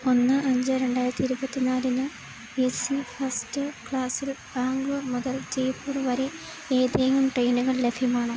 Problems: constant background noise